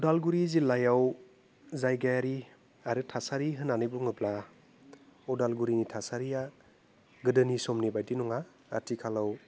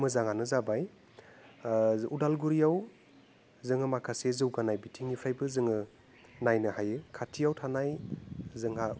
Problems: constant background noise